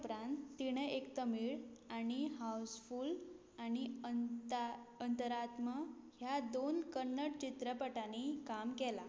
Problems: none marked